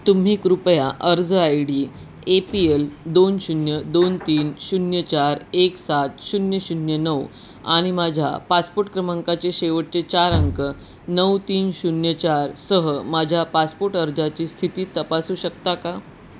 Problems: constant background noise